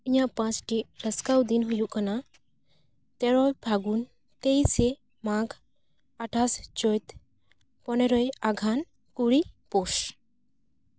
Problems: none marked